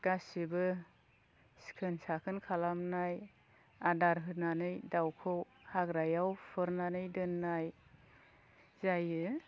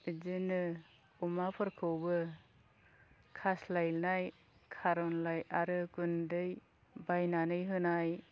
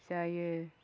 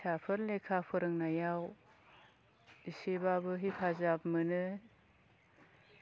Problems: low volume